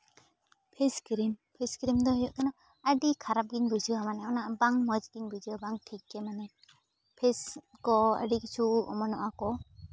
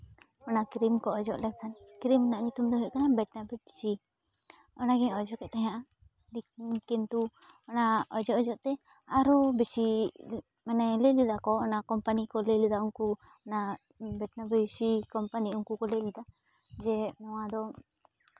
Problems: background sounds at intervals